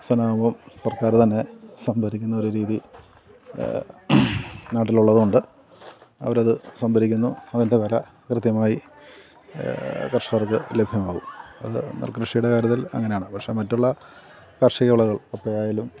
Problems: continuous background conversations